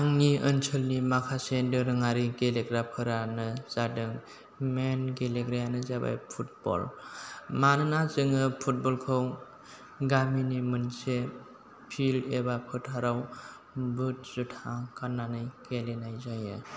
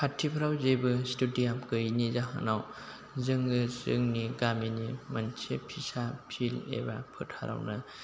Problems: low volume